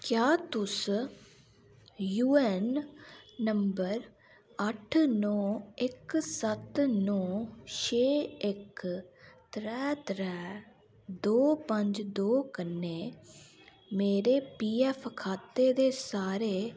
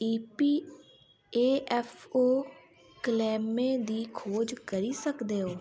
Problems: constant background noise